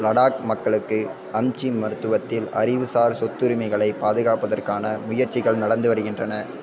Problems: continuous background conversations